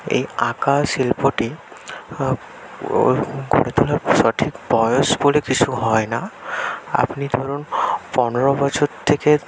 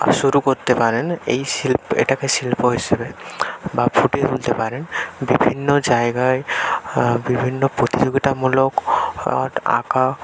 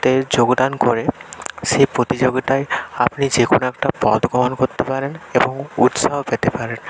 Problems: none marked